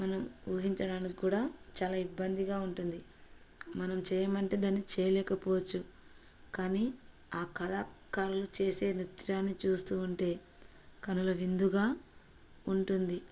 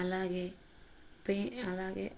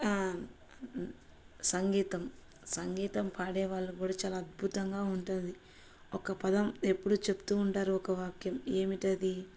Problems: none marked